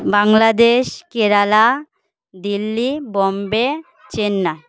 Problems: continuous background conversations